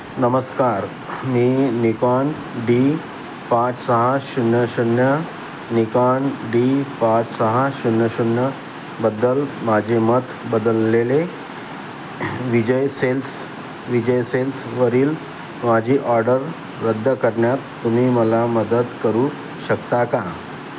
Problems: constant background noise